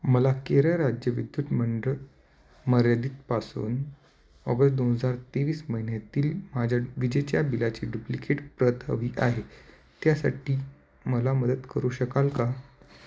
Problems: none marked